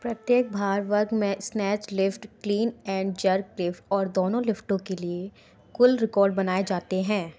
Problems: none marked